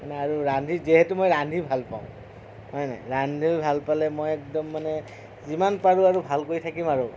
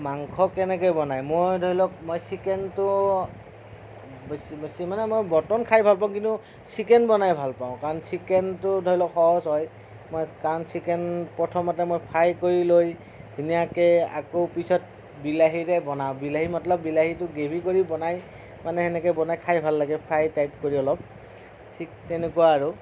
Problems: none marked